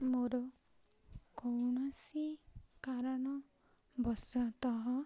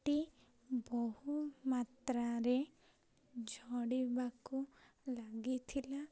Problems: none marked